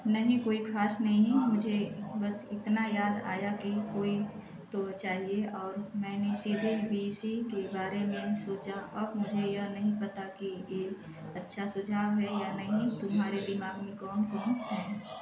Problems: none marked